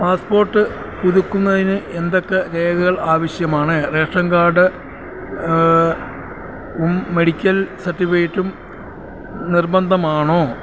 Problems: constant background noise